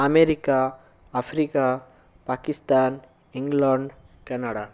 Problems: none marked